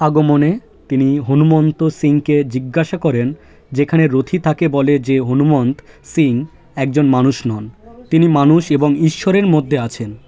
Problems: constant background noise, continuous background conversations